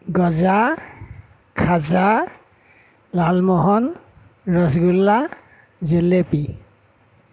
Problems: none marked